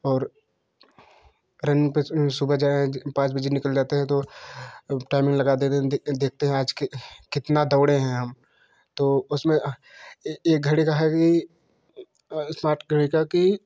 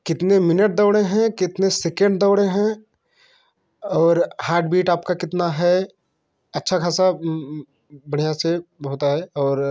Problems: constant background noise